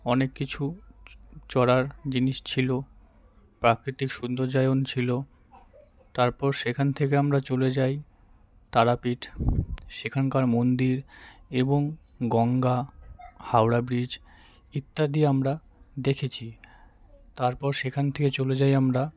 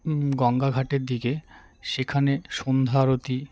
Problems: constant background noise, background conversations at intervals